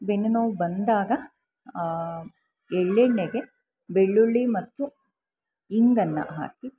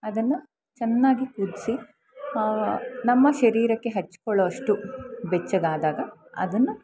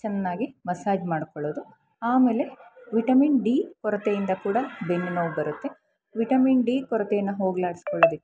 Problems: constant background noise